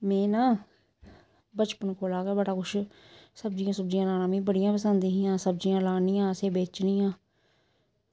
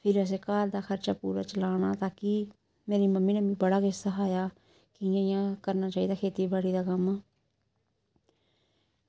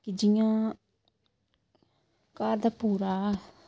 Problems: none marked